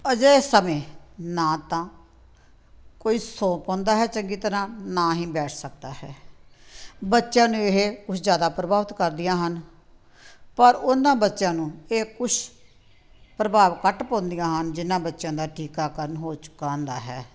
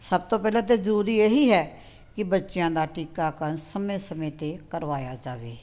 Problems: background sounds at intervals